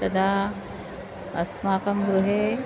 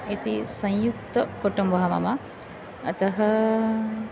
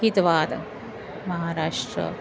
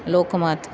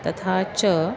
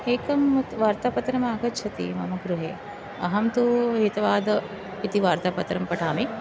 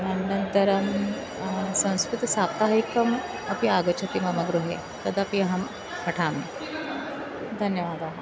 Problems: constant background noise, continuous background conversations